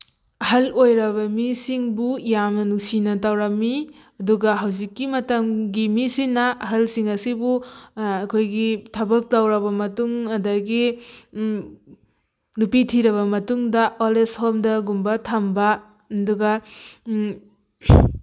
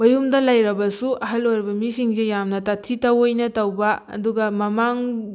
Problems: none marked